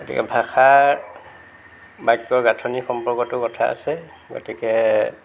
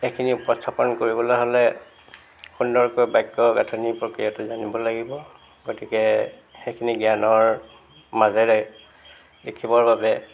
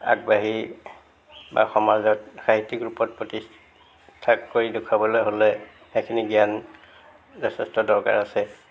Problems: background sounds at intervals